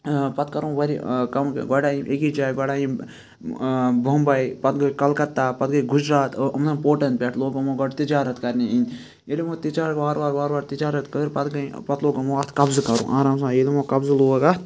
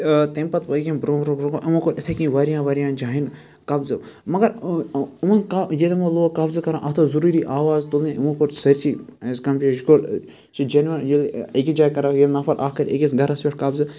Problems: constant background noise, background conversations at intervals